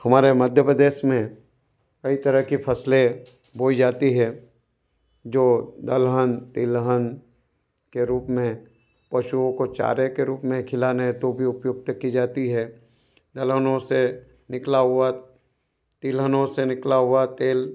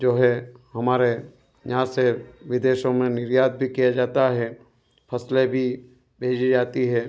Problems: none marked